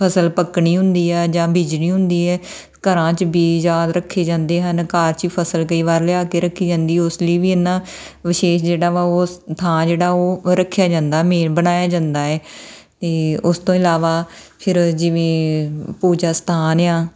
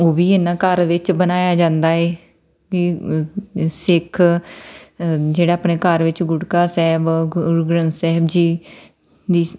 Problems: none marked